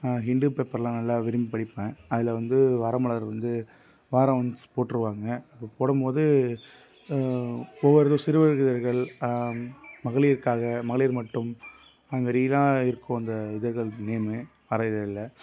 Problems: constant background noise